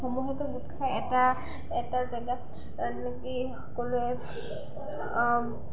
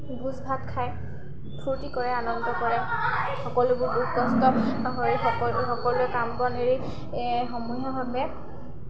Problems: constant background noise, continuous background conversations